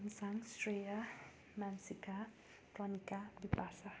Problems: constant background noise